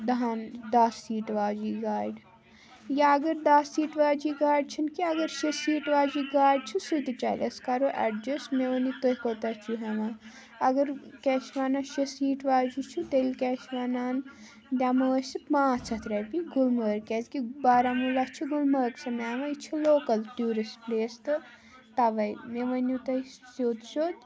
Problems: constant background noise